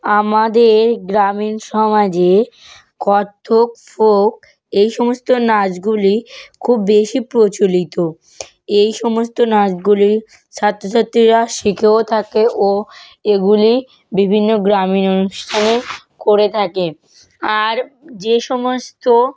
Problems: background sounds at intervals